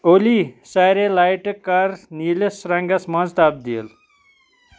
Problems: none marked